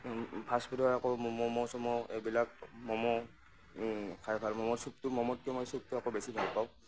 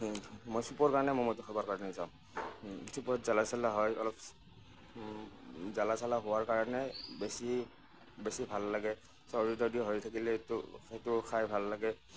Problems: none marked